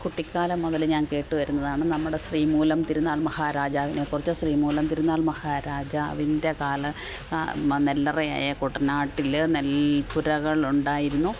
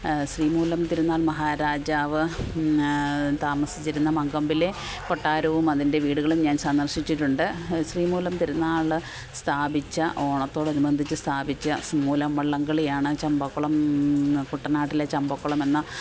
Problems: none marked